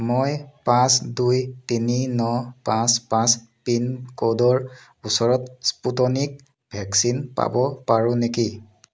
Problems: none marked